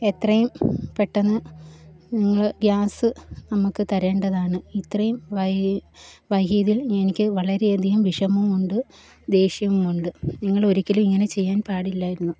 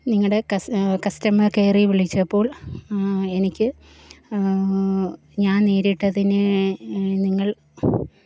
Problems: background sounds at intervals